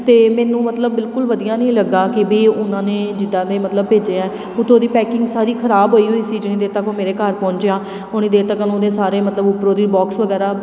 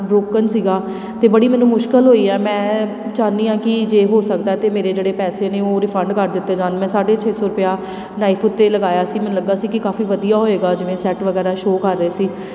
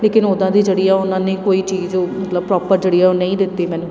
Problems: constant background noise